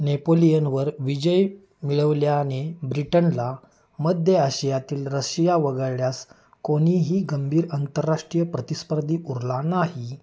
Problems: none marked